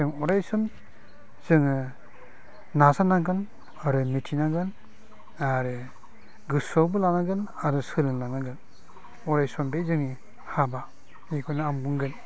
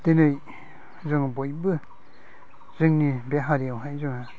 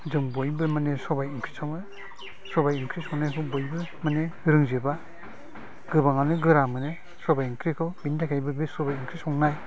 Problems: low volume